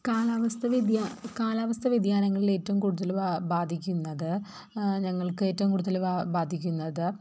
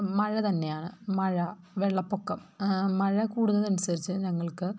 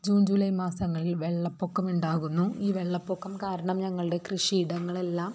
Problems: background sounds at intervals